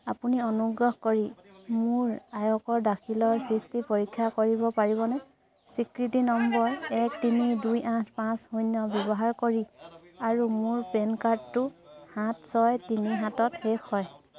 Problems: constant background noise, continuous background conversations